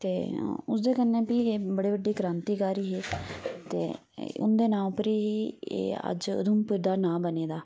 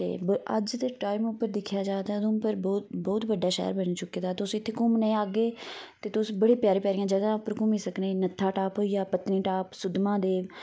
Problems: none marked